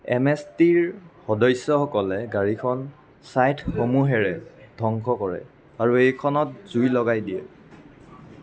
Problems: none marked